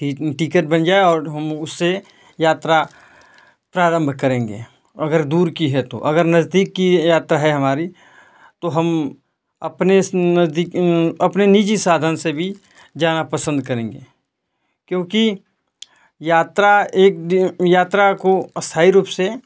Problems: none marked